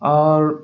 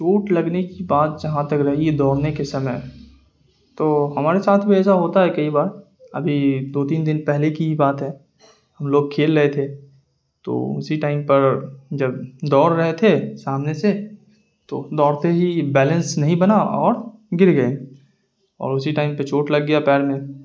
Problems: none marked